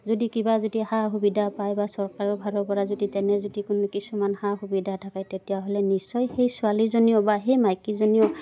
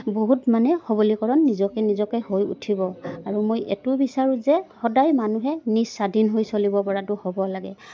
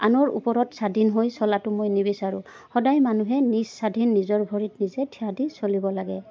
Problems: none marked